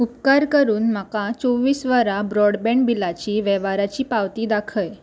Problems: none marked